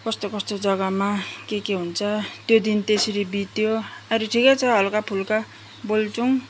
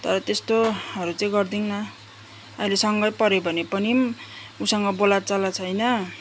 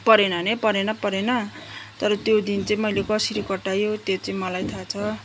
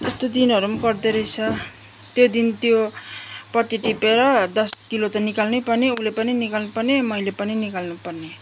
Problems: constant background noise, background conversations at intervals